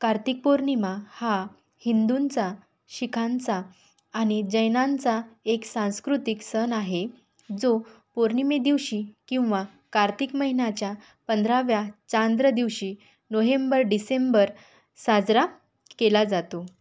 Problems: none marked